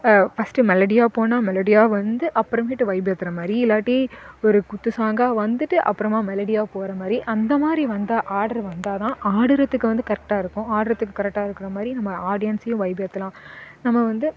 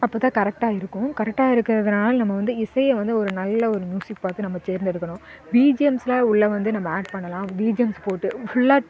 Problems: constant background noise, continuous background conversations